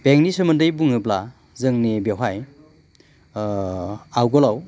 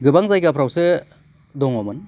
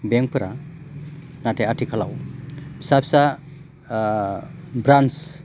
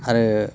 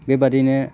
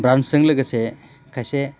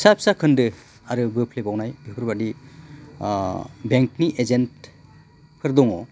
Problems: constant background noise